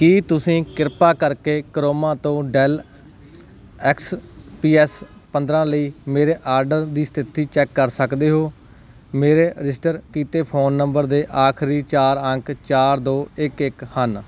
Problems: background sounds at intervals